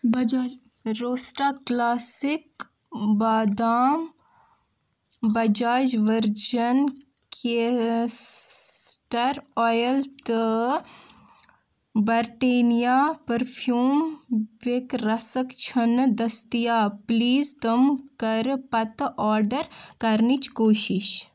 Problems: background conversations at intervals